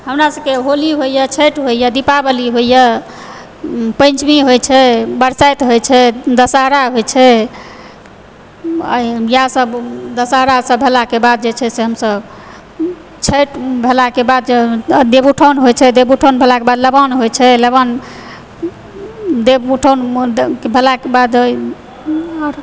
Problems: background sounds at intervals